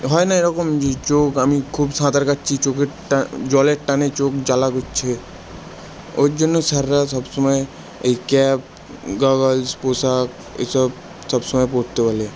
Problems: constant background noise